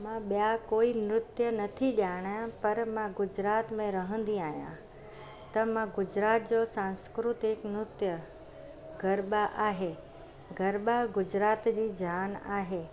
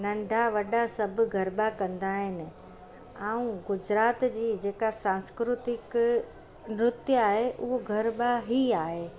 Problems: constant background noise